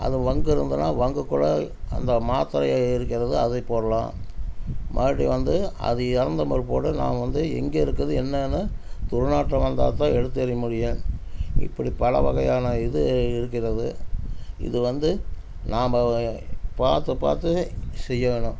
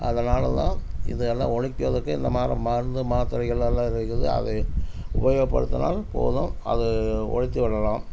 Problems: constant background noise